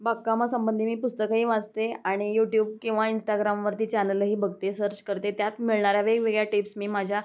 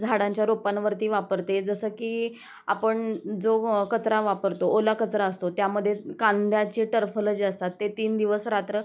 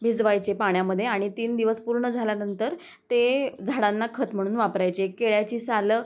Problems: constant background noise